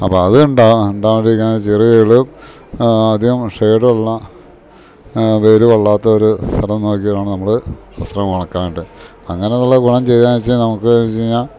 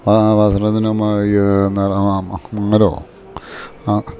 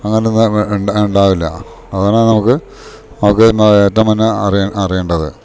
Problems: background sounds at intervals